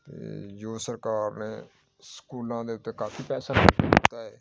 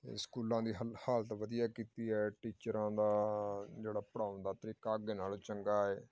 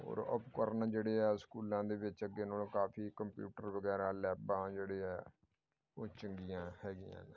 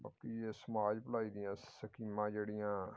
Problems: background sounds at intervals